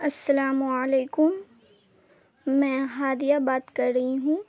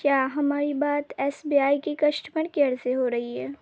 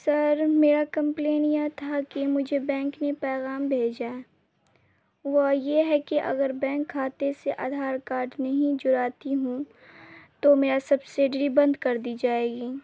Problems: constant background noise, low volume